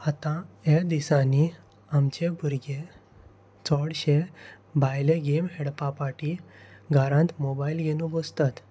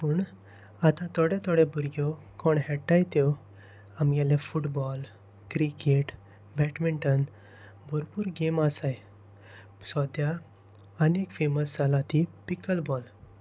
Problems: constant background noise